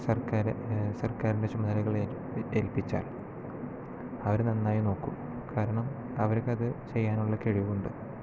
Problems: low volume